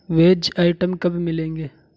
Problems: none marked